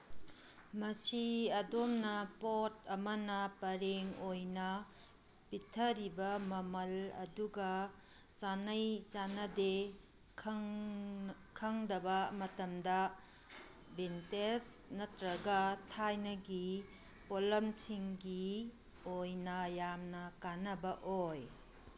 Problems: none marked